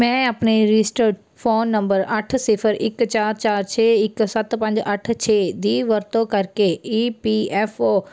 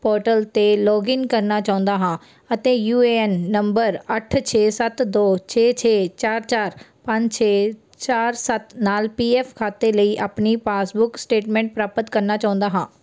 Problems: none marked